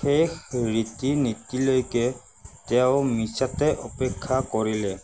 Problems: constant background noise